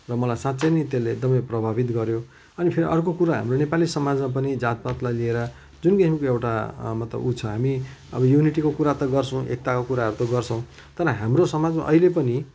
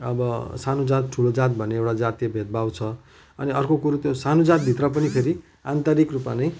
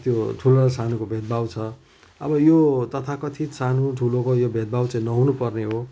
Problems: background sounds at intervals